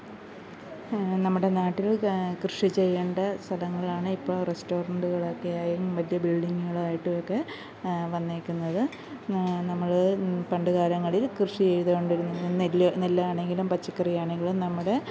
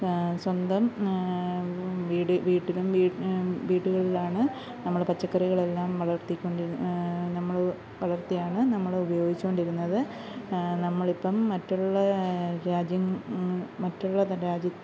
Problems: background sounds at intervals